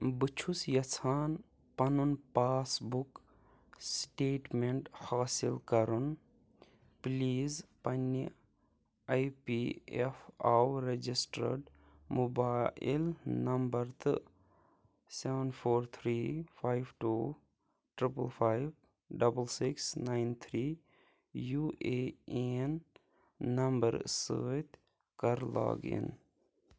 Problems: low volume